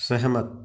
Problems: none marked